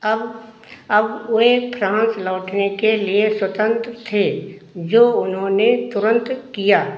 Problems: echo